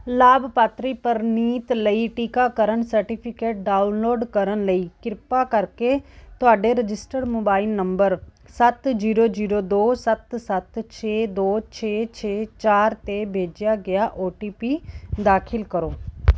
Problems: background sounds at intervals